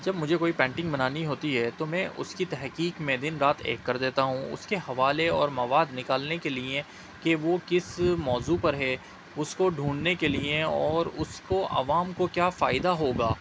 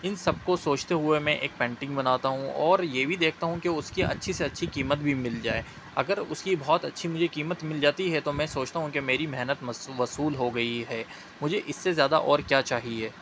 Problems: constant background noise